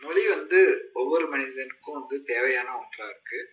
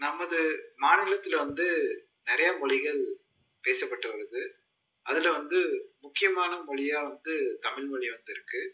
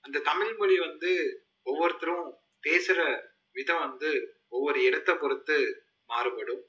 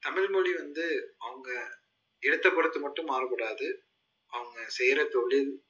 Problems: low volume